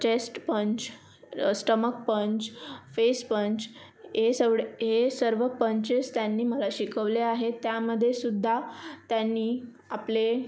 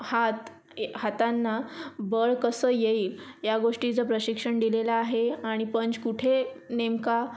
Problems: constant background noise, background conversations at intervals